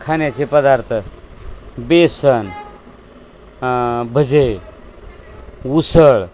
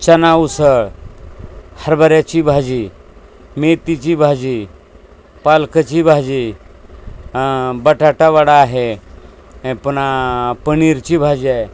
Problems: constant background noise, background conversations at intervals